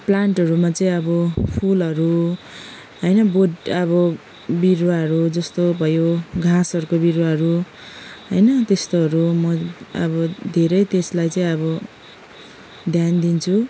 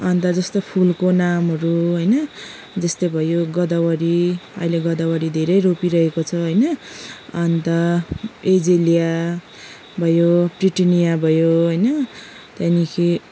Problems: background sounds at intervals